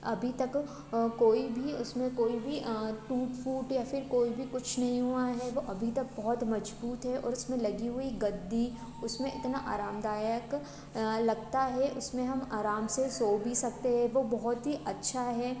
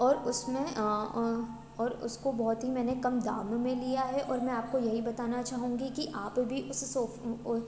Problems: background sounds at intervals